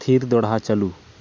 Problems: none marked